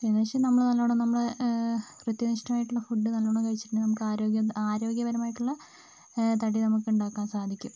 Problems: constant background noise, low volume